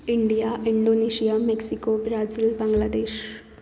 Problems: background sounds at intervals, low volume